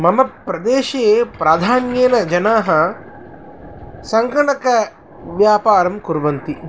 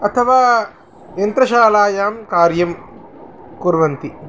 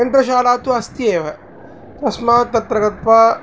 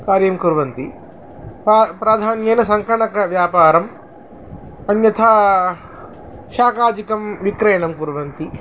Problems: constant background noise